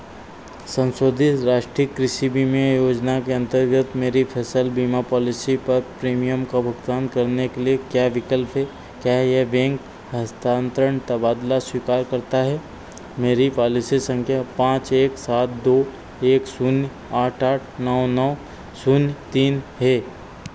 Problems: constant background noise